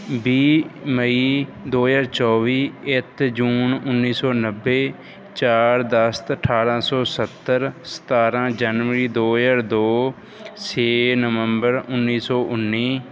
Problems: background sounds at intervals